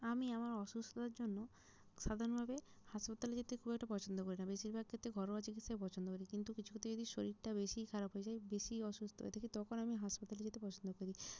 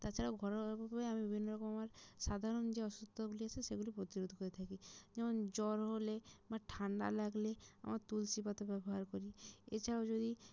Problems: low volume